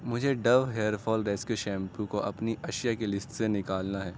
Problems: constant background noise